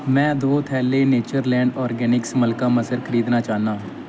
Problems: constant background noise